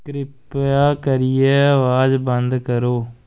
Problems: constant background noise